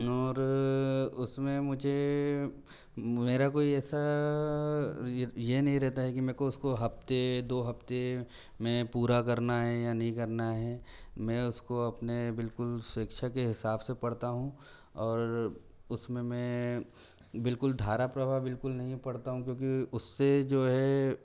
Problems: none marked